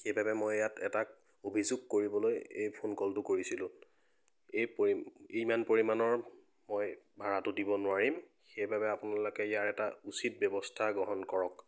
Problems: none marked